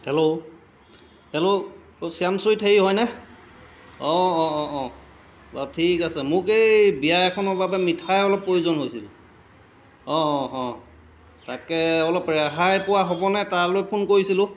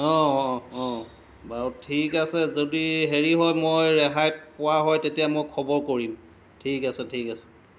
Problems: none marked